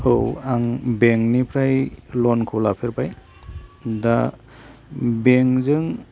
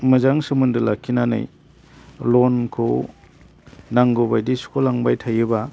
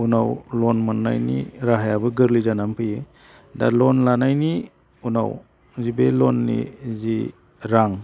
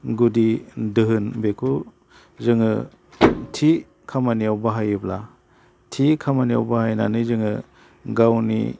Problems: none marked